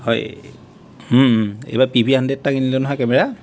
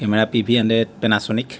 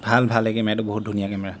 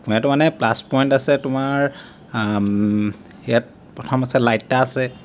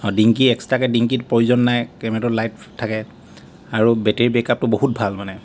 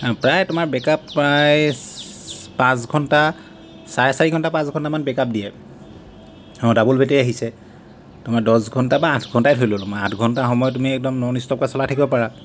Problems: constant background noise